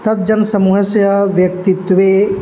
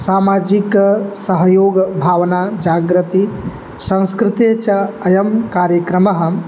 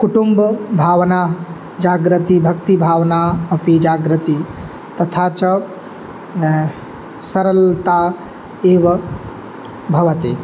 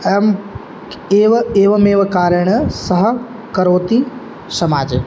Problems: background sounds at intervals